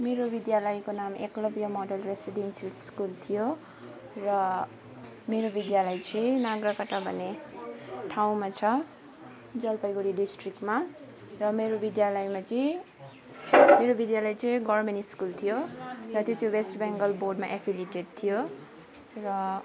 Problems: background conversations at intervals, low volume